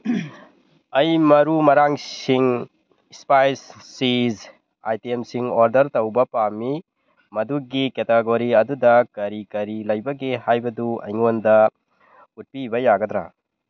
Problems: none marked